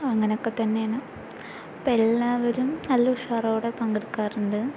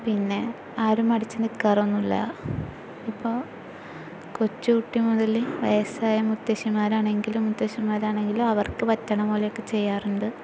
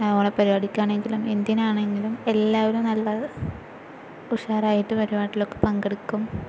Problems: constant background noise